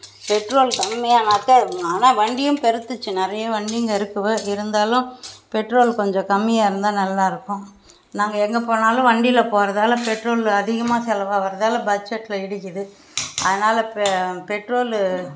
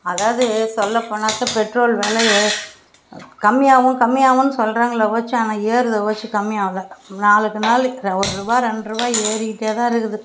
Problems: constant background noise